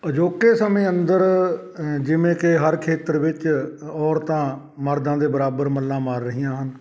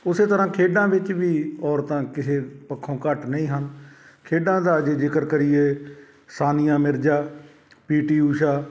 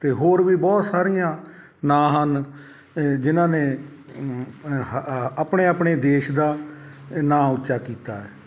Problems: background conversations at intervals